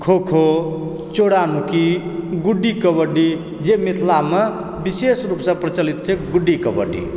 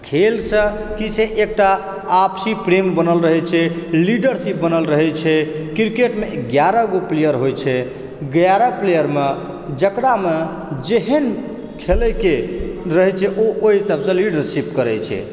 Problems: background conversations at intervals